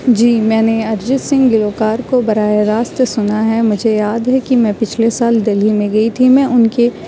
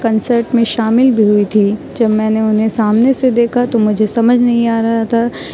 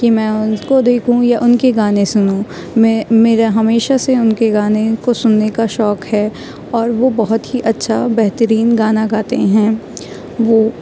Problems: none marked